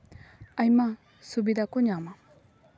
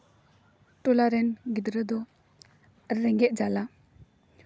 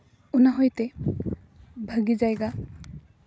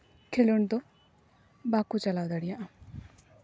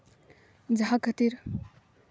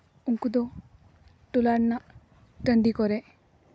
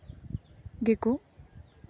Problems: background sounds at intervals